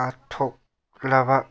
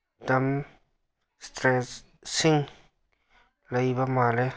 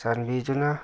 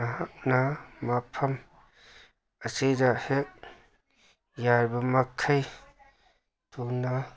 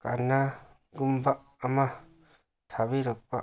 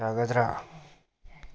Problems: none marked